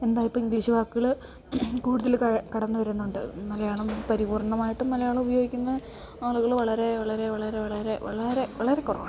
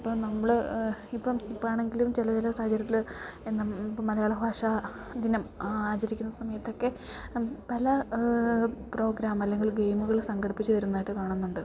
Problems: none marked